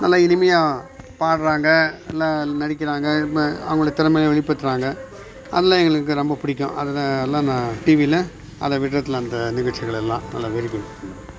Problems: background sounds at intervals